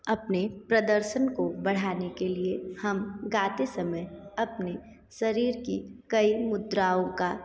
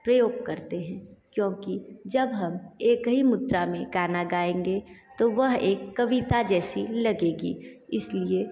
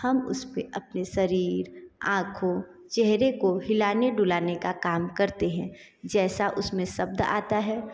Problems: echo